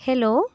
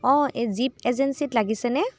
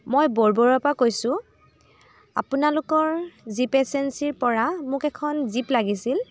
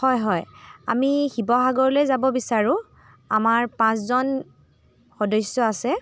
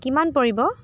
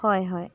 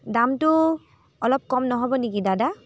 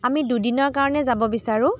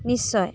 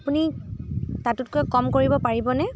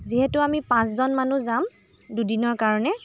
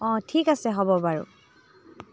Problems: constant background noise